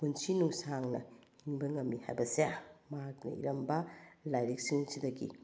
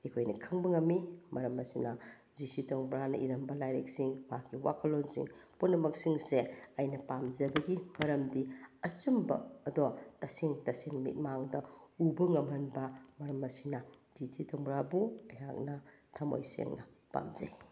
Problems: none marked